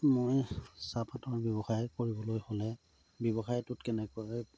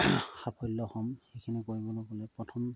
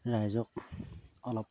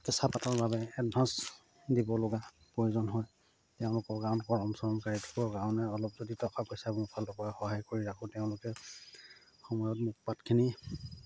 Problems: constant background noise, low volume